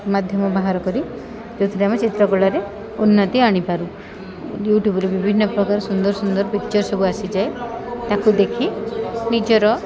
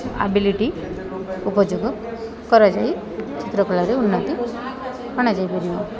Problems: none marked